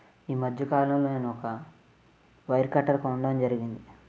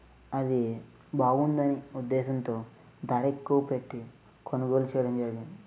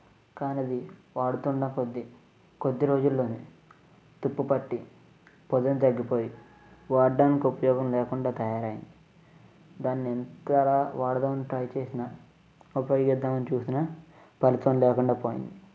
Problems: low volume